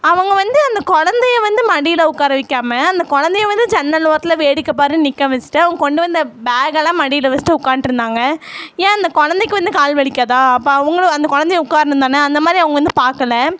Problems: none marked